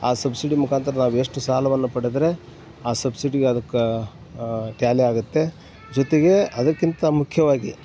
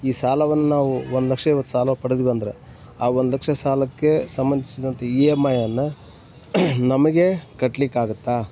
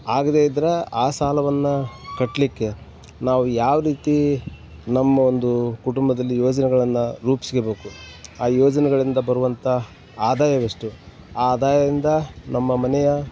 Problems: background sounds at intervals